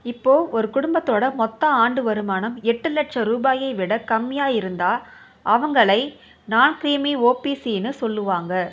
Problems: constant background noise, background conversations at intervals